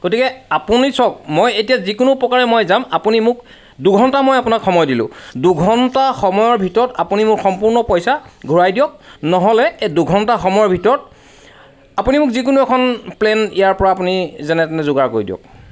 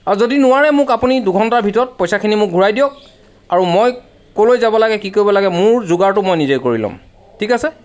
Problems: none marked